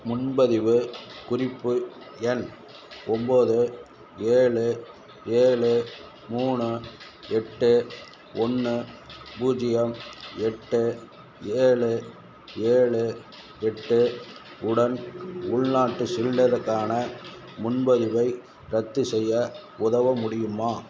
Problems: constant background noise